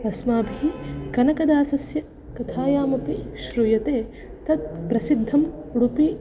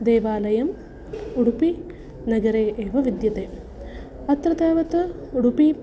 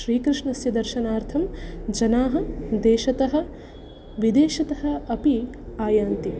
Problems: background sounds at intervals